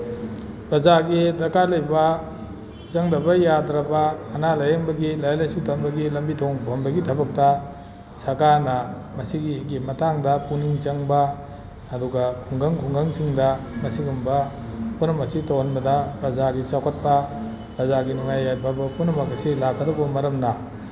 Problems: background sounds at intervals